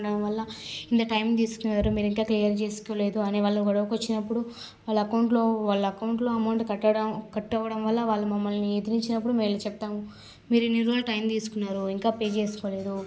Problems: constant background noise